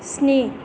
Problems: constant background noise